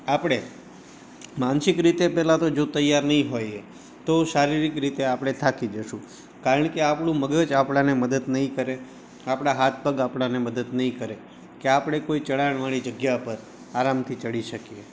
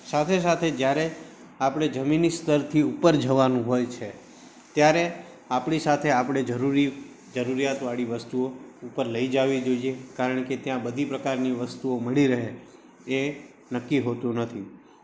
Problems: background sounds at intervals